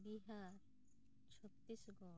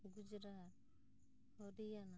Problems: low volume